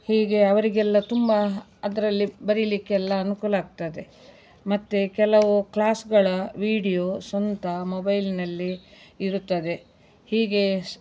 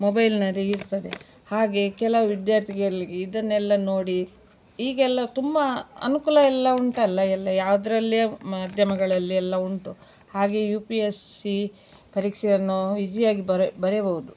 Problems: background sounds at intervals